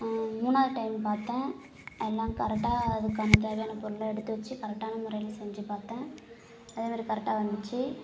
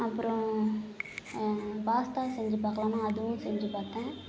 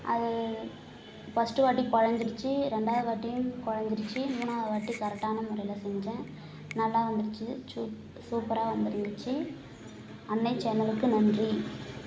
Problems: none marked